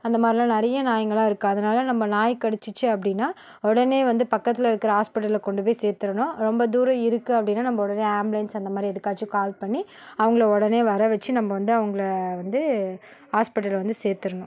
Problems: none marked